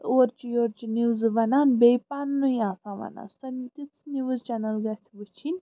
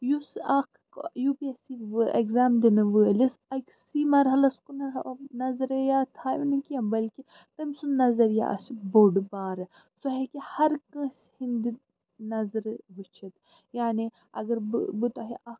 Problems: background sounds at intervals